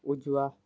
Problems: none marked